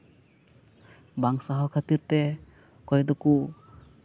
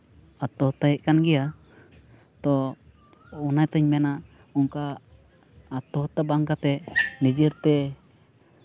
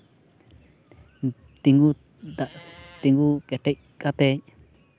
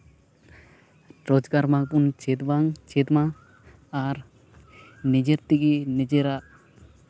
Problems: constant background noise